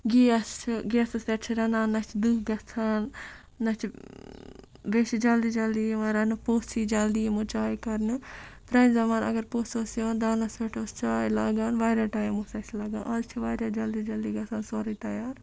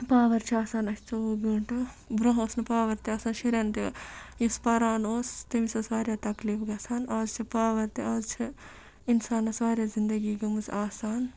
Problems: background sounds at intervals